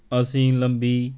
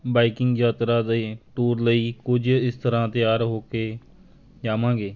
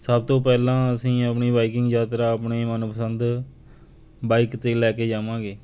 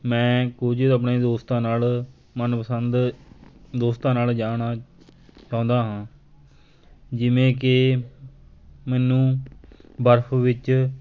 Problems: constant background noise, background conversations at intervals